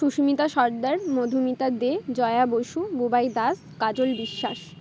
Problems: none marked